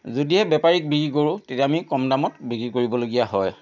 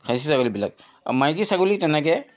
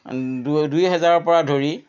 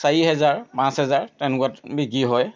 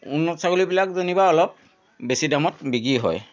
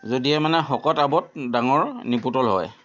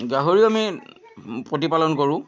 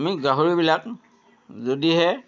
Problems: constant background noise